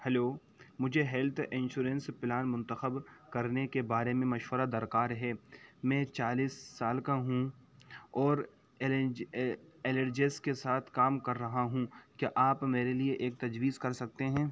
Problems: constant background noise, low volume